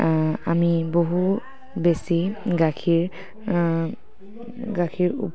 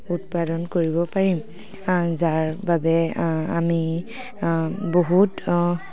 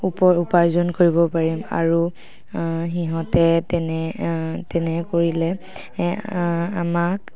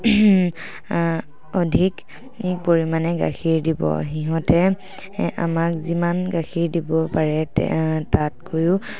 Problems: background sounds at intervals